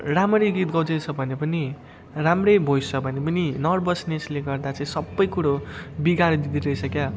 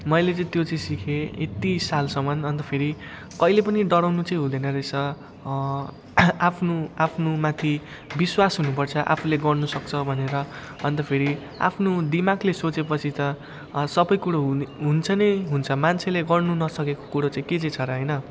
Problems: none marked